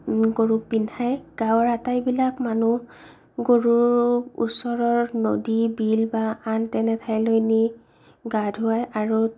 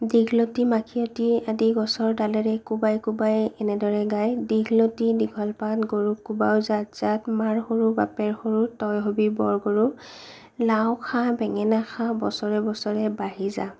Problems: low volume